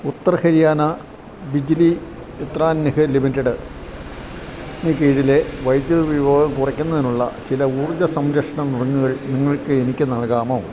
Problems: none marked